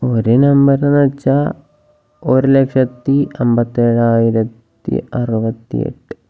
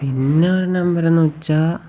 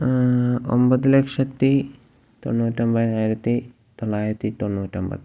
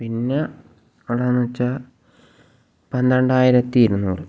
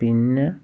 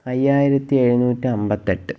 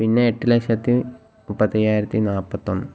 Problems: low volume